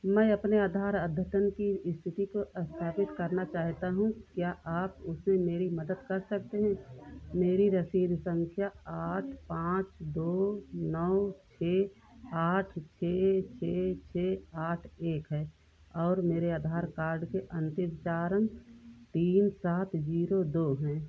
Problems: none marked